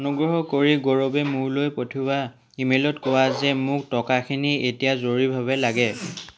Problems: none marked